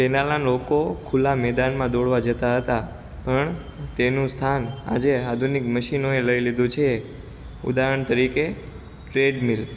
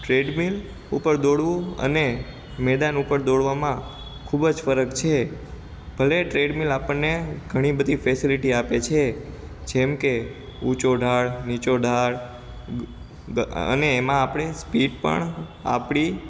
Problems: constant background noise